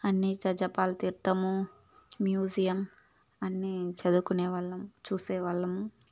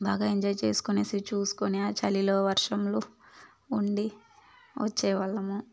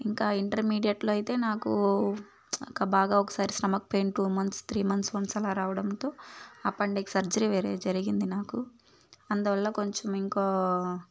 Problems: constant background noise, background conversations at intervals